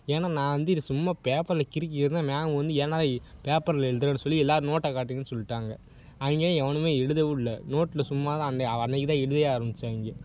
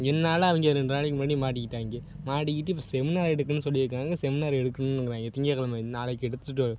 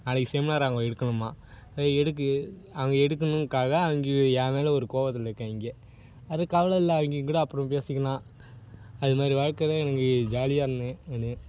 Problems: none marked